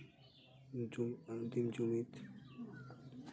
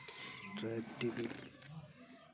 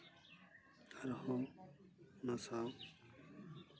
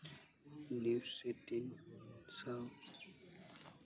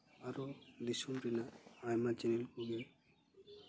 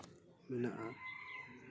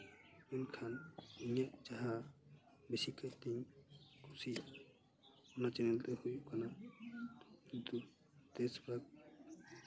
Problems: background sounds at intervals, continuous background conversations